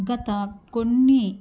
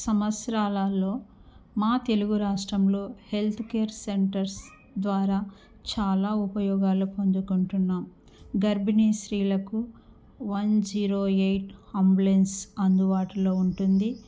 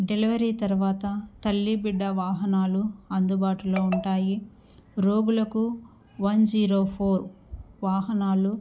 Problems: none marked